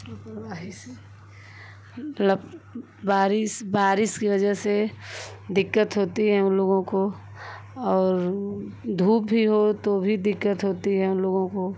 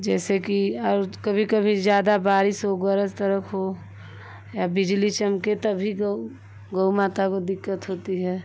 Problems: constant background noise